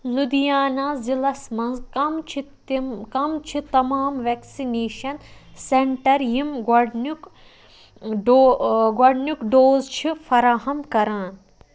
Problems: background sounds at intervals